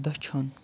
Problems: constant background noise, low volume